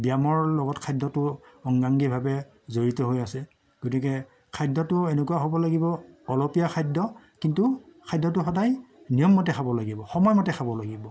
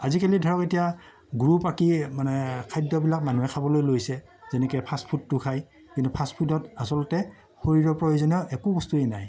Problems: none marked